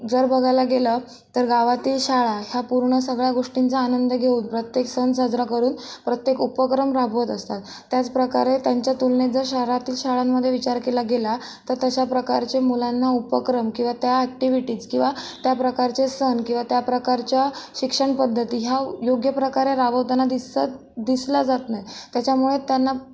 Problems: constant background noise